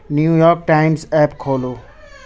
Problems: constant background noise